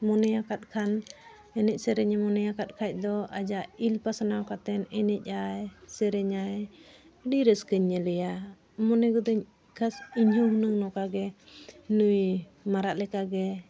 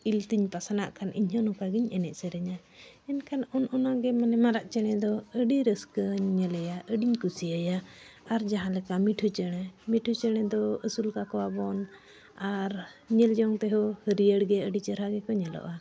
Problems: none marked